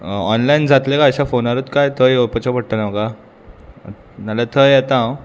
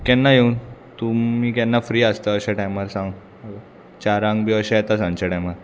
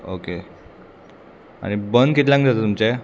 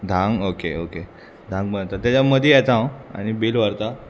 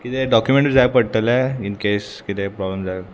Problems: constant background noise